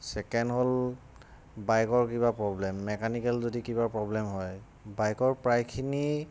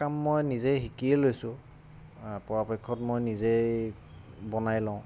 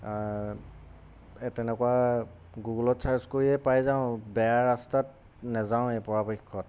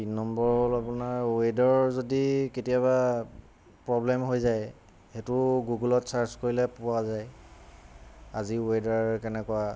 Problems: constant background noise